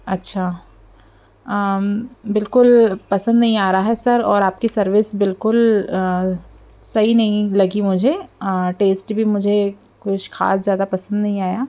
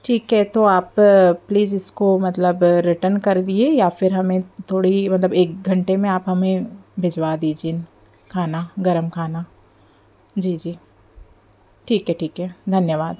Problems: background sounds at intervals, background conversations at intervals